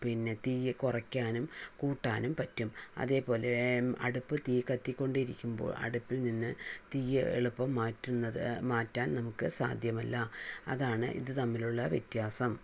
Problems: low volume